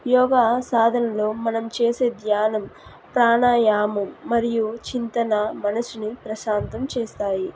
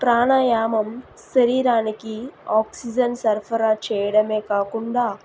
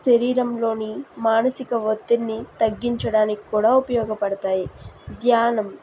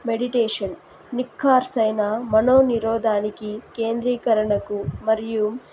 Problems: background sounds at intervals